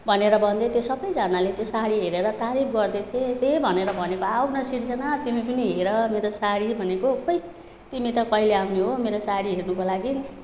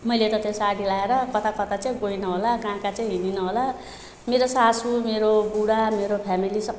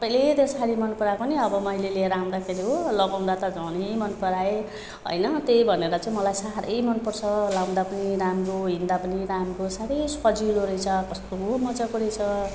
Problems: constant background noise